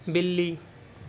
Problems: none marked